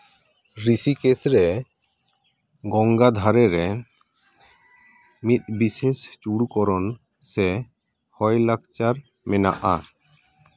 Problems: background sounds at intervals